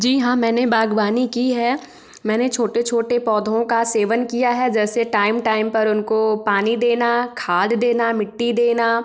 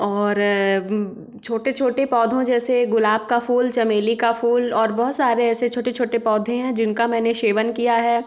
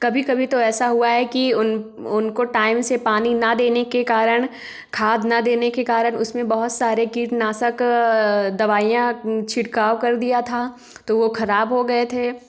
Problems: none marked